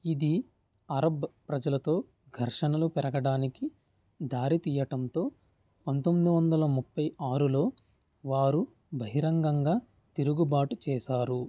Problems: none marked